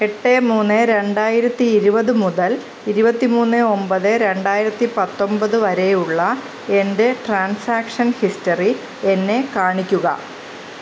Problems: constant background noise